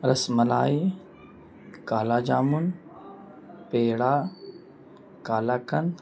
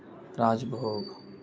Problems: constant background noise, low volume